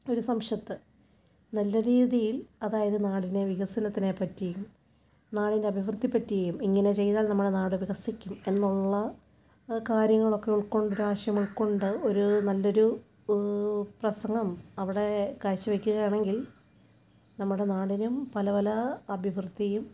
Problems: low volume